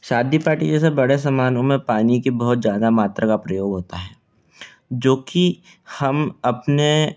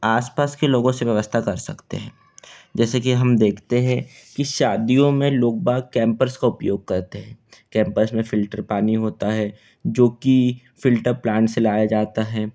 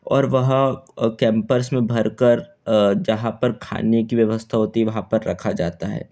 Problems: none marked